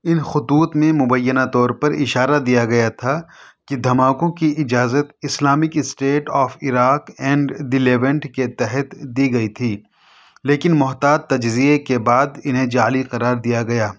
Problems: none marked